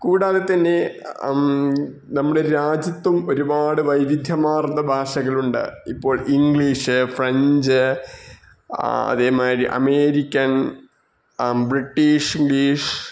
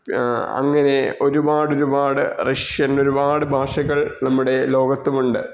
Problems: none marked